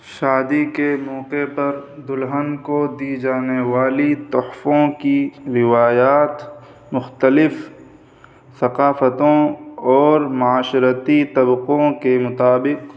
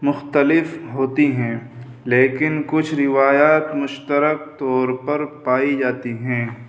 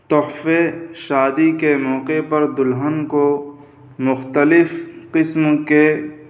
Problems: constant background noise